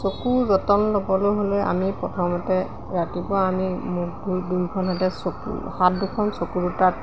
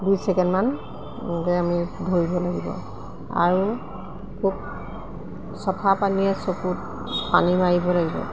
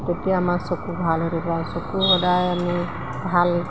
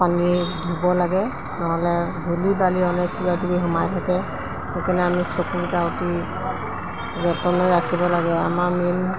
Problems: background sounds at intervals